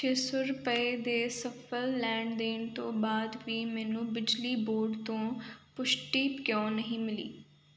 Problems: none marked